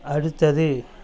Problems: none marked